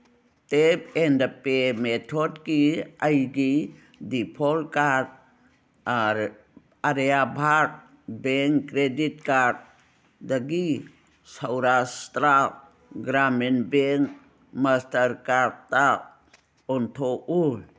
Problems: none marked